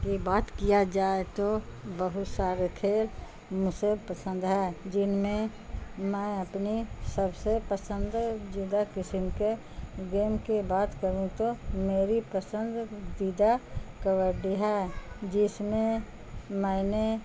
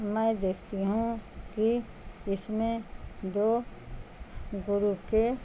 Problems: constant background noise